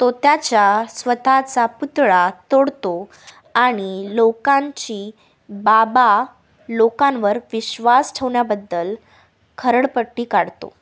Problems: none marked